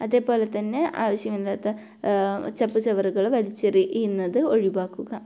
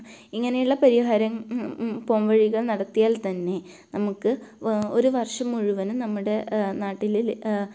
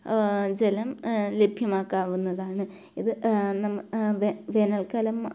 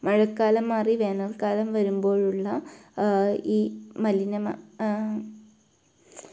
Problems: low volume